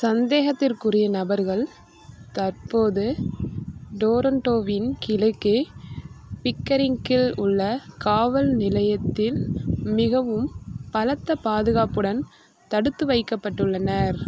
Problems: constant background noise